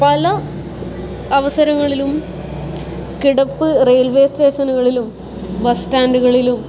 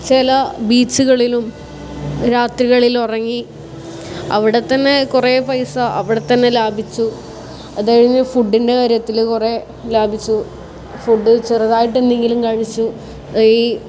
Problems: constant background noise